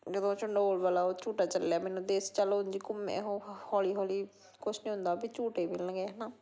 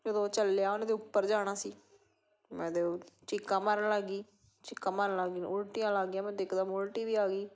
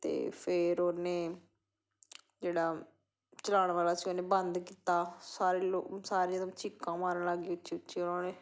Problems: background sounds at intervals